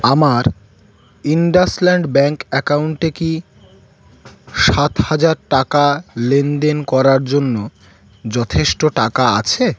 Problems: background sounds at intervals